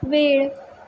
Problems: none marked